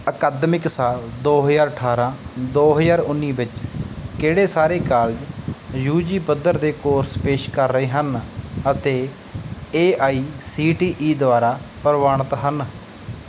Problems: background sounds at intervals